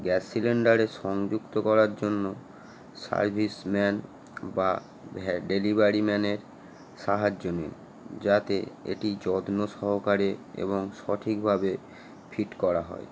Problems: none marked